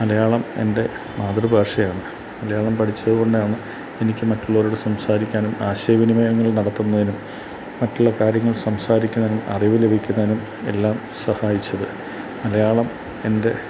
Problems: constant background noise